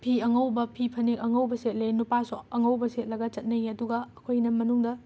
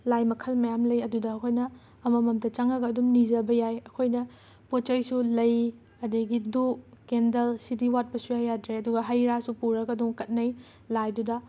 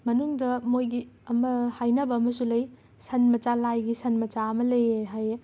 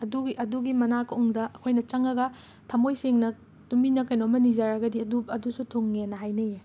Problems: background sounds at intervals